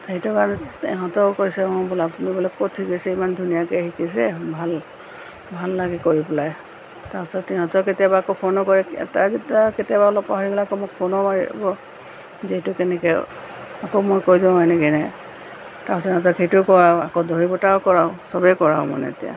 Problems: constant background noise